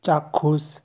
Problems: none marked